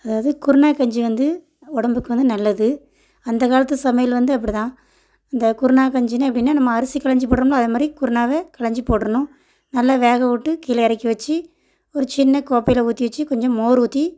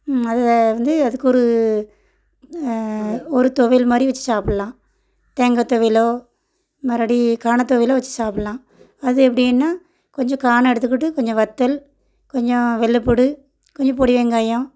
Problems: none marked